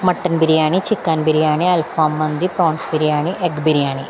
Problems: none marked